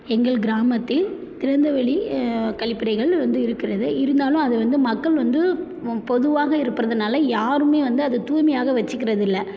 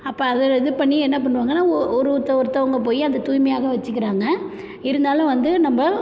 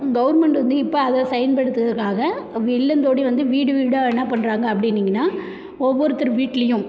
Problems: none marked